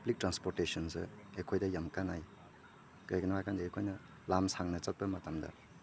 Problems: none marked